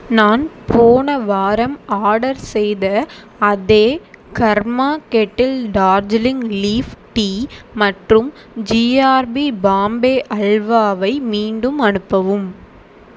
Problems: constant background noise